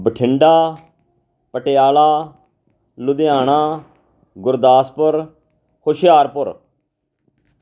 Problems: background sounds at intervals